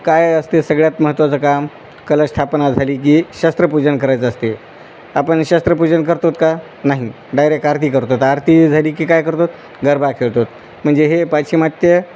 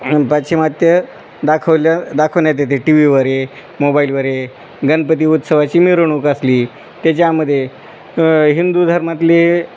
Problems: none marked